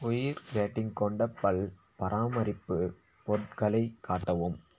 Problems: low volume